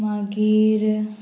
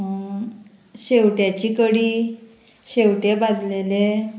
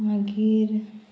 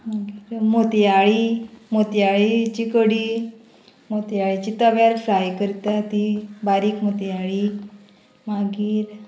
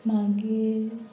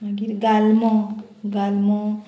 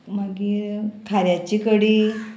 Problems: constant background noise